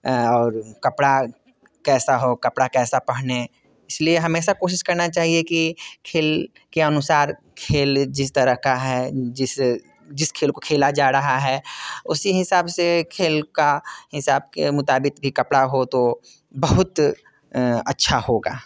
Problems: none marked